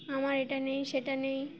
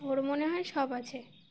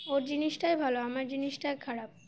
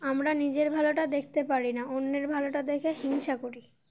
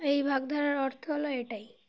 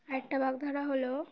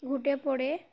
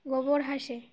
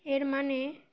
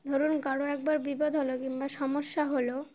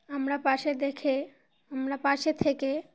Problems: constant background noise